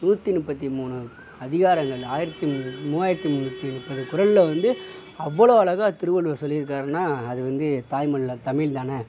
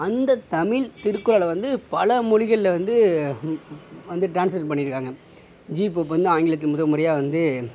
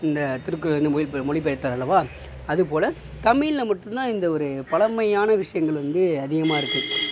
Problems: constant background noise